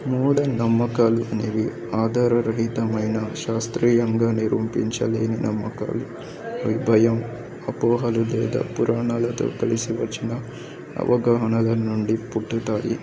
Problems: continuous background conversations